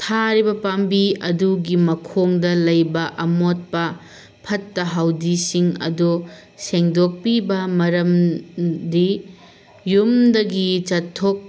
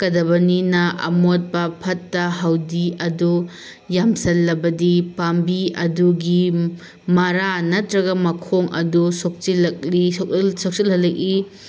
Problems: constant background noise